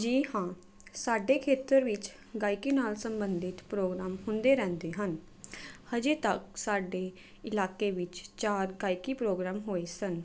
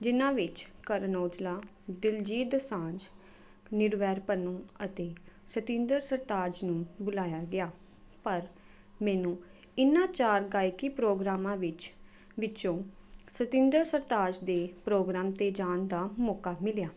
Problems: none marked